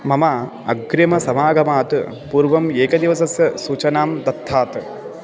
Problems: continuous background conversations